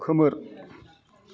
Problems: background conversations at intervals